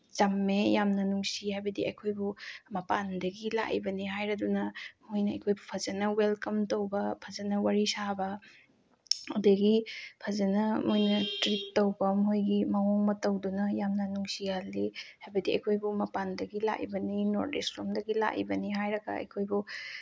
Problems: none marked